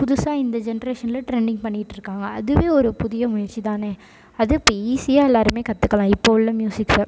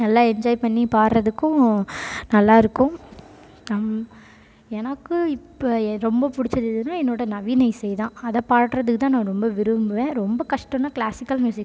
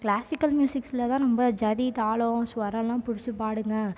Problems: background sounds at intervals